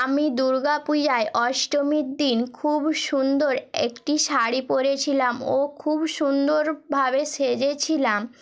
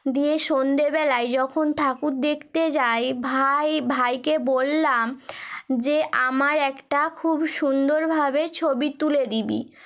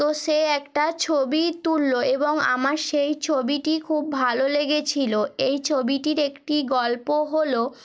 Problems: background sounds at intervals